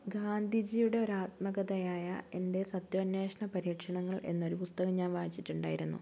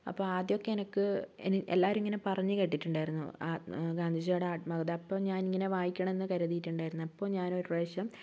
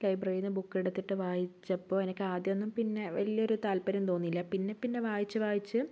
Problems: none marked